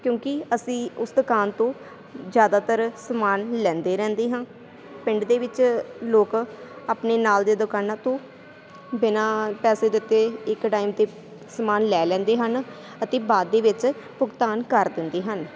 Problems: constant background noise